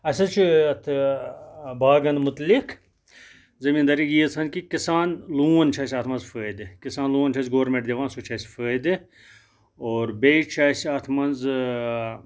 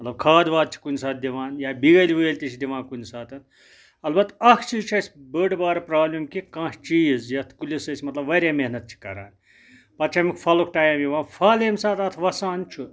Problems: none marked